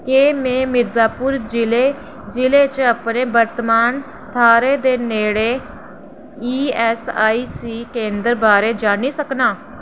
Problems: none marked